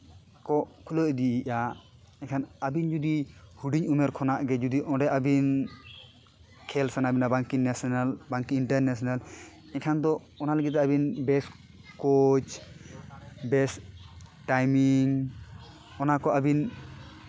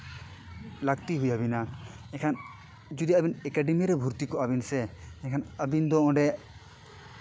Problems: constant background noise